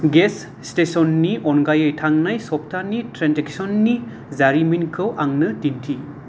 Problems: none marked